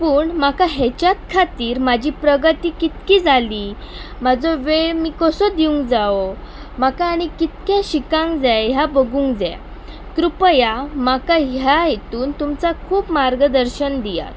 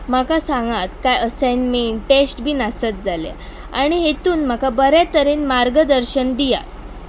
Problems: constant background noise